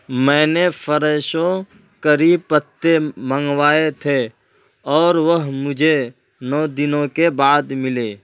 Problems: none marked